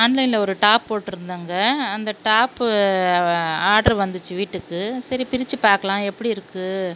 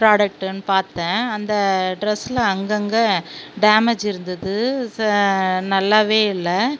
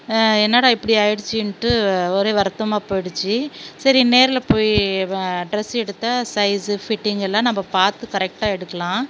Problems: none marked